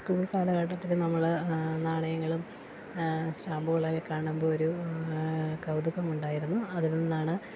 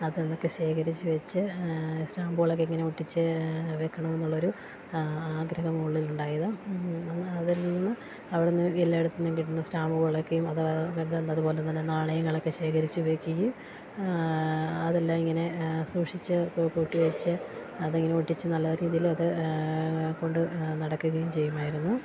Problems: constant background noise, low volume